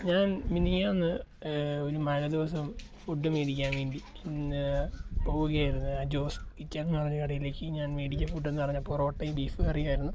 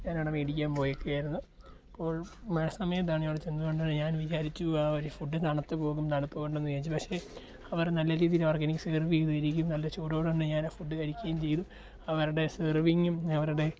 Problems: low volume